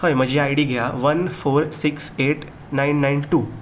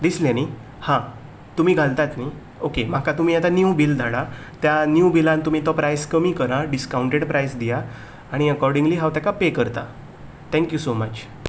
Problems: background sounds at intervals